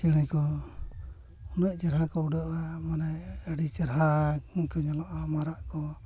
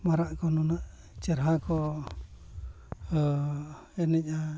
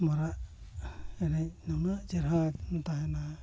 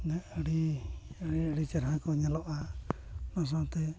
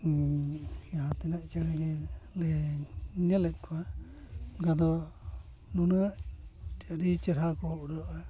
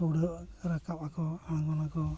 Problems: background sounds at intervals, low volume